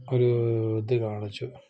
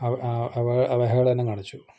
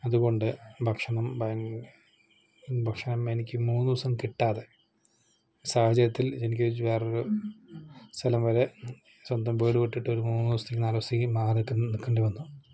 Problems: none marked